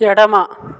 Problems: none marked